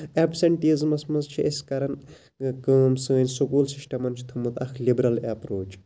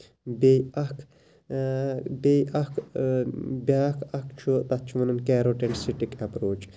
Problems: low volume